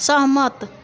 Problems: constant background noise